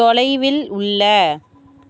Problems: continuous background conversations